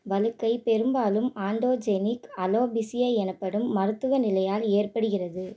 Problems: none marked